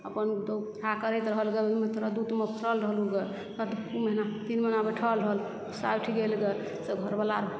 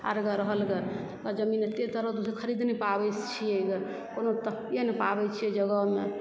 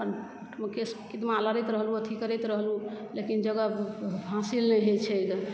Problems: background sounds at intervals, low volume